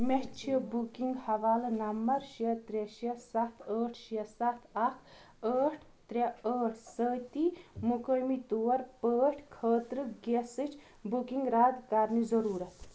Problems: none marked